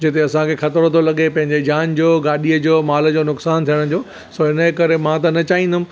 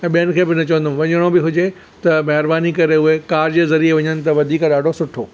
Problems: none marked